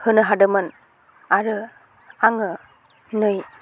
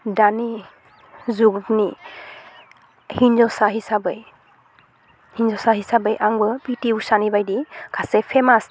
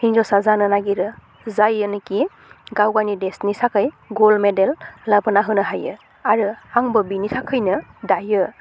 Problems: constant background noise